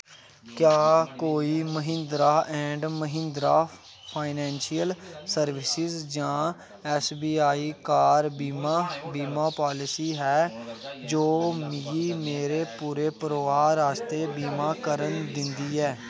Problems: constant background noise